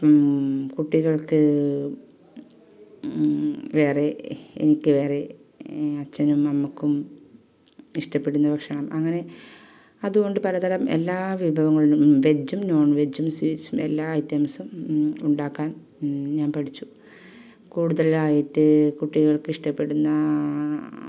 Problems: none marked